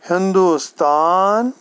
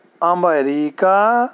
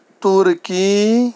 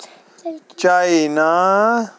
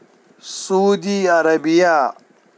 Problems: none marked